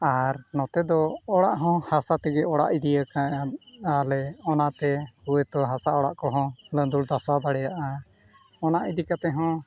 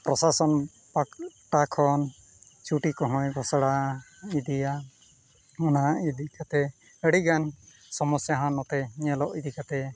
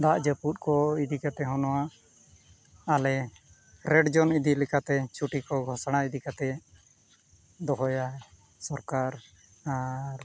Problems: none marked